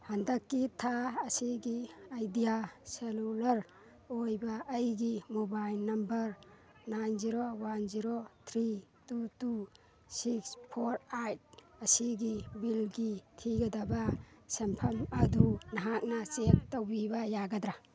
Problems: background sounds at intervals, background conversations at intervals